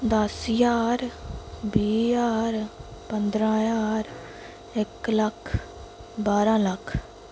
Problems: constant background noise